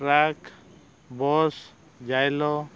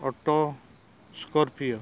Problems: none marked